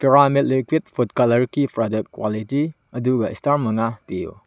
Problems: none marked